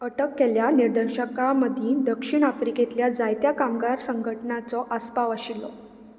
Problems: none marked